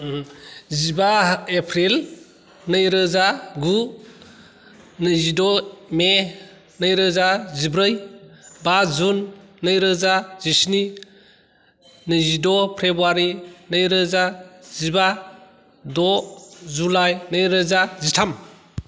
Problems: none marked